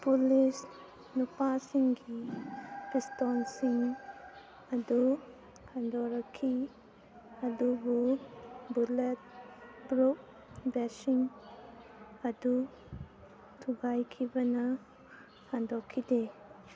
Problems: low volume